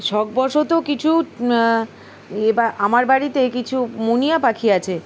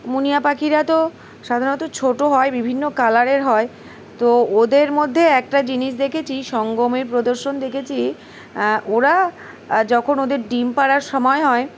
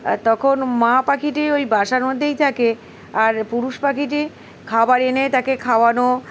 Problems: background sounds at intervals